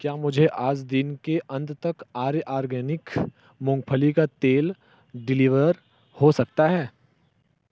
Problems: low volume